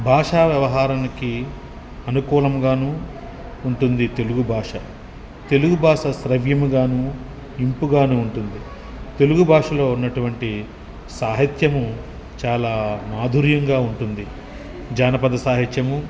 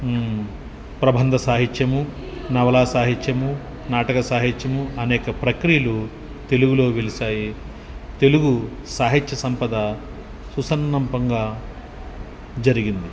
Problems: background conversations at intervals